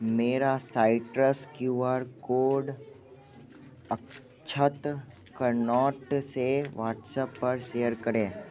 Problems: constant background noise, background conversations at intervals